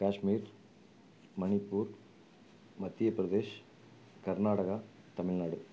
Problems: low volume